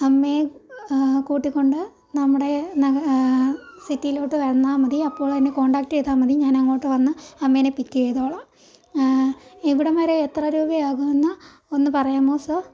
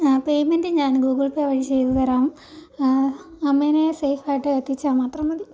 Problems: background sounds at intervals